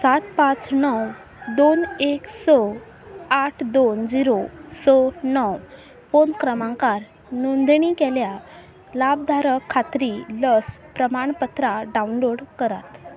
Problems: none marked